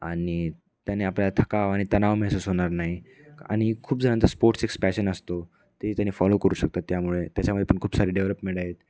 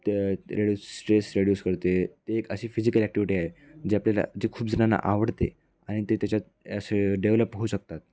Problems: background sounds at intervals, background conversations at intervals